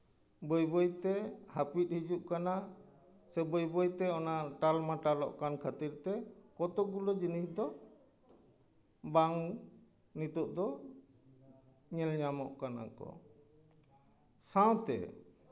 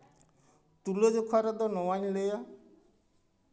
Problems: none marked